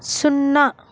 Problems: none marked